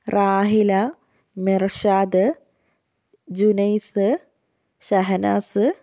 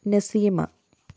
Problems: none marked